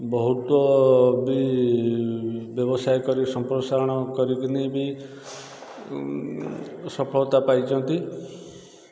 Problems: constant background noise